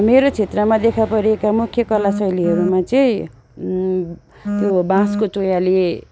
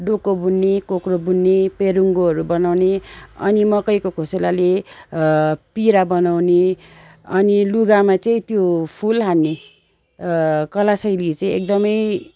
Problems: none marked